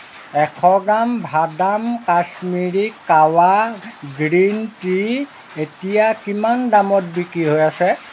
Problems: constant background noise